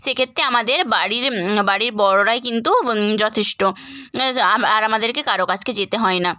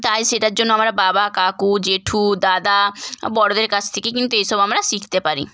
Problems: background sounds at intervals